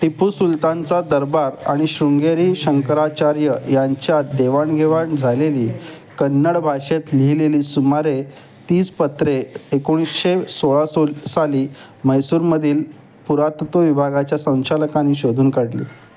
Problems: none marked